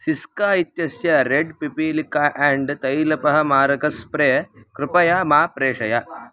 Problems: background sounds at intervals